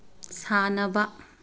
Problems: none marked